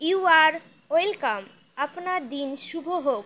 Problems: constant background noise